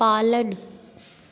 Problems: constant background noise, echo